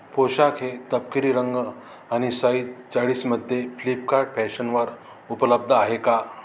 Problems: constant background noise